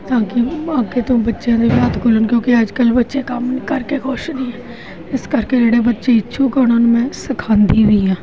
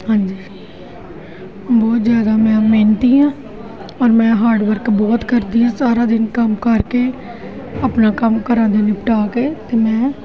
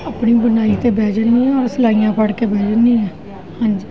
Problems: constant background noise, continuous background conversations